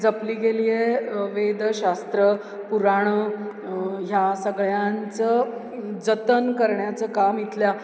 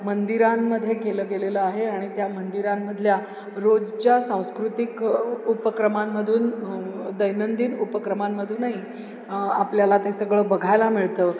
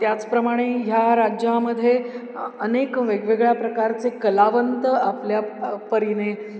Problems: none marked